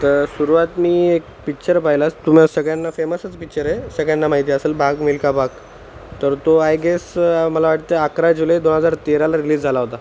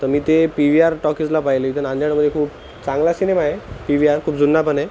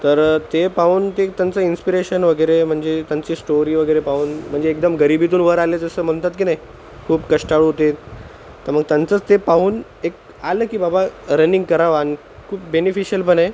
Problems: none marked